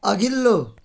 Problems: none marked